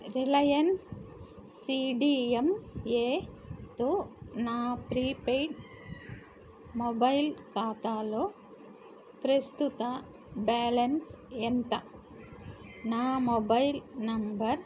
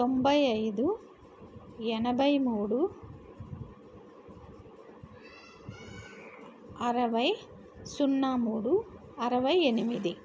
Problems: none marked